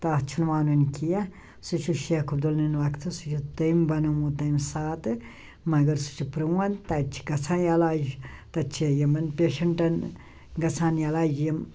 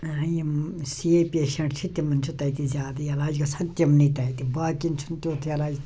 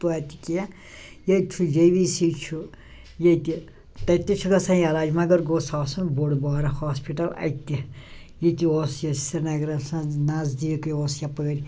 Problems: none marked